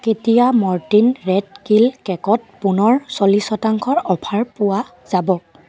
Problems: continuous background conversations